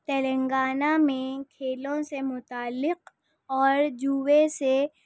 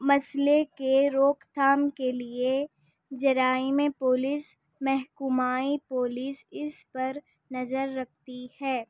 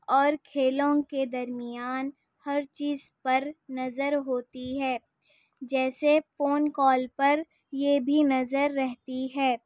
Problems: none marked